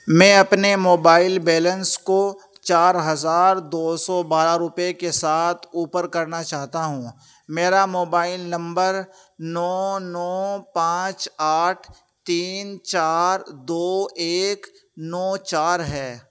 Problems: constant background noise